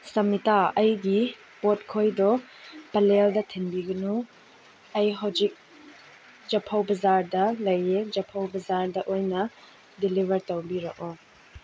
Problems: background sounds at intervals